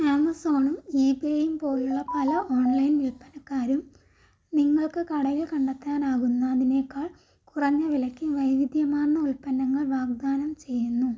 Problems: background sounds at intervals, low volume